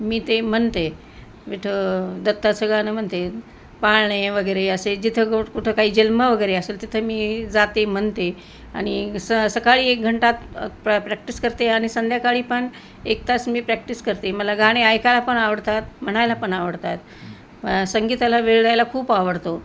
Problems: none marked